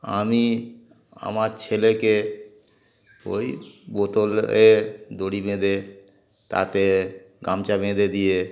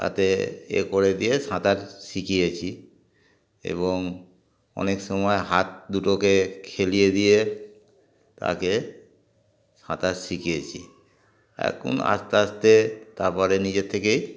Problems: background sounds at intervals